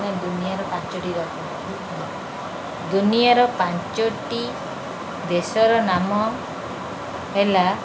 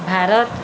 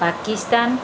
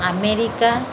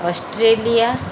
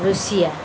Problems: background sounds at intervals